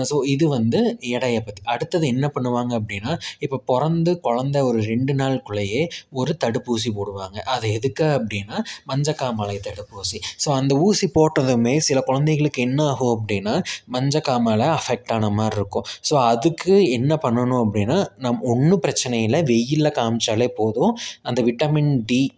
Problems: none marked